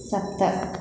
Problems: constant background noise